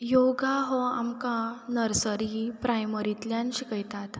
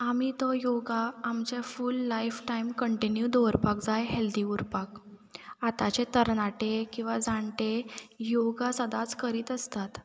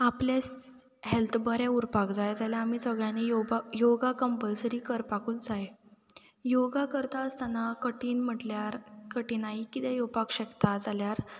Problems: background sounds at intervals